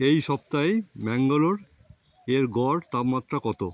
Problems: none marked